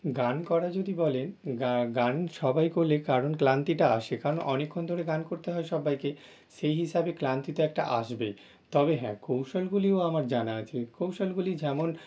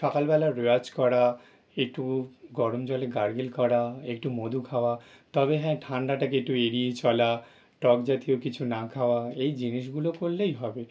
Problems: none marked